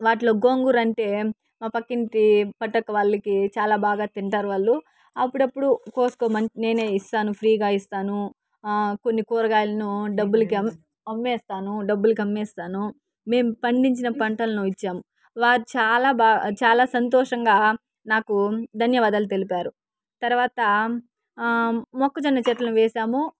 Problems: background sounds at intervals